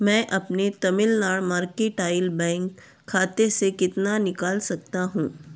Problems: constant background noise